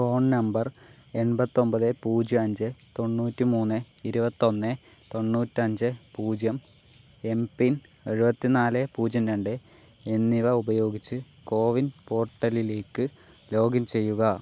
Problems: background sounds at intervals, low volume